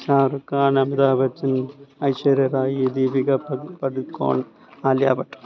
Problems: none marked